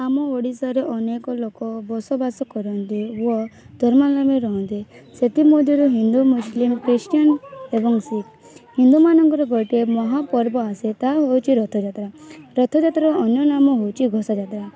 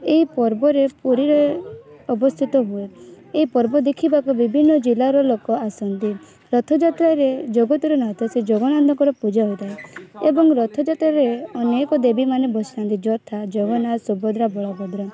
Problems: constant background noise, continuous background conversations